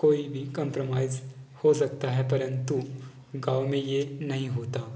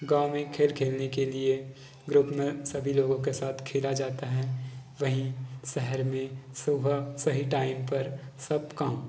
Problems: background conversations at intervals